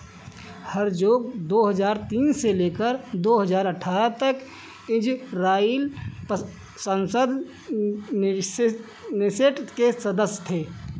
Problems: background sounds at intervals